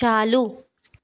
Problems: background sounds at intervals